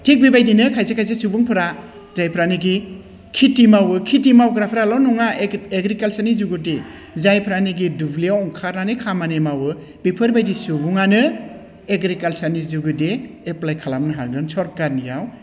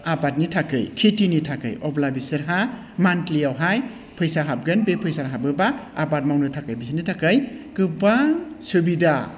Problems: none marked